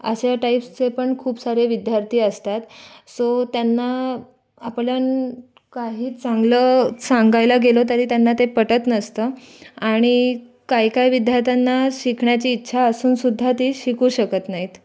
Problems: constant background noise, background conversations at intervals